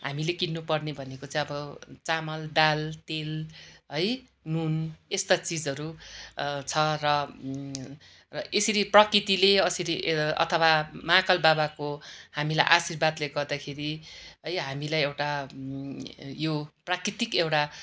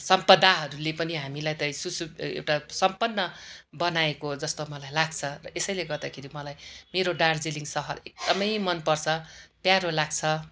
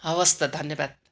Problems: none marked